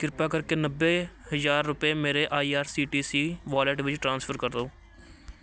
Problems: background sounds at intervals